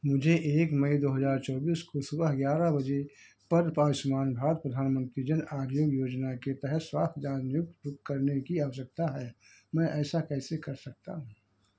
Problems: none marked